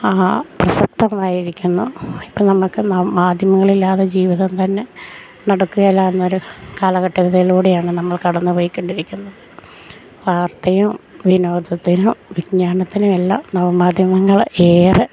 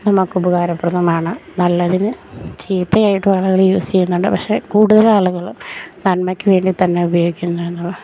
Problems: none marked